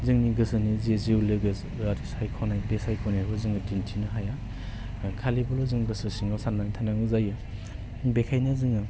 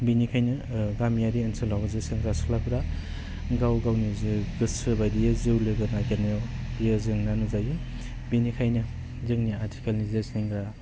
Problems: constant background noise